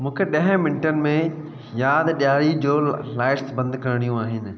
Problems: constant background noise, echo